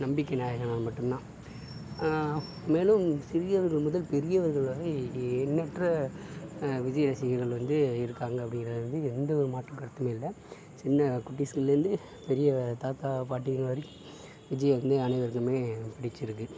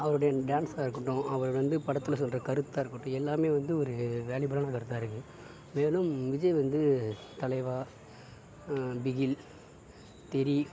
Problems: background sounds at intervals, background conversations at intervals, low volume